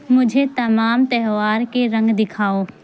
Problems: constant background noise